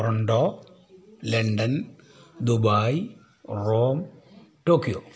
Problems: low volume